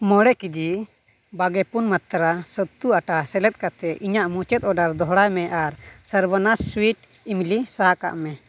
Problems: none marked